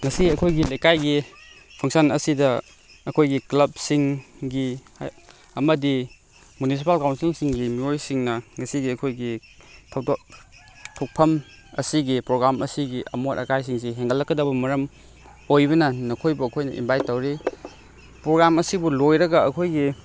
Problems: background sounds at intervals